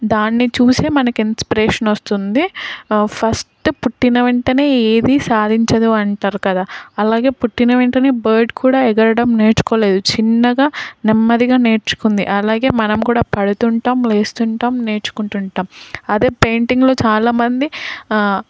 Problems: constant background noise